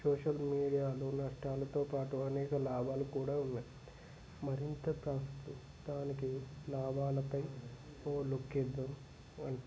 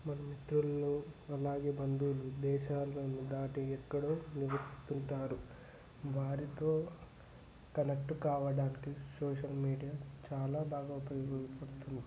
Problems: constant background noise, low volume